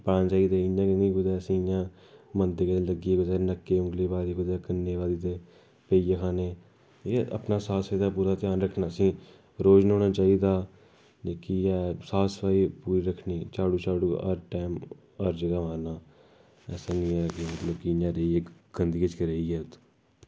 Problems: background sounds at intervals